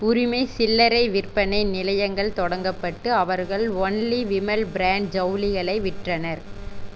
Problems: constant background noise